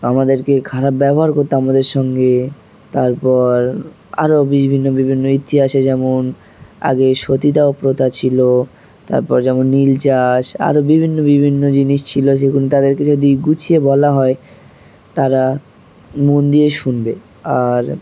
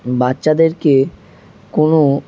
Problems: constant background noise